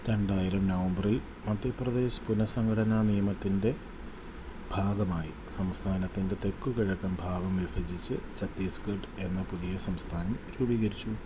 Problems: low volume